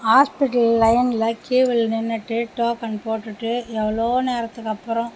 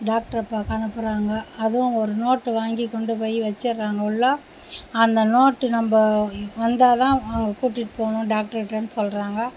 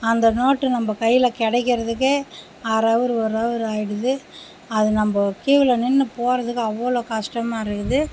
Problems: none marked